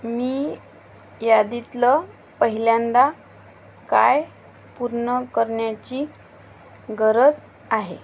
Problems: constant background noise